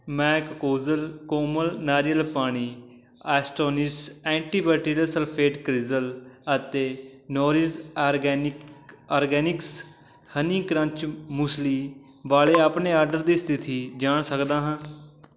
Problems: constant background noise